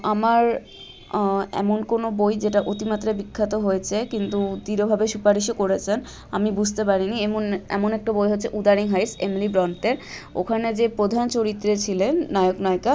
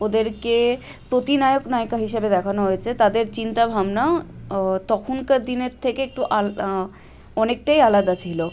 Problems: constant background noise, background conversations at intervals